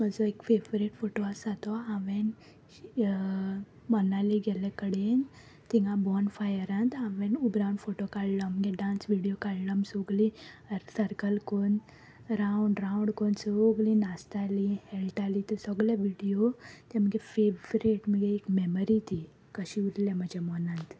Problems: constant background noise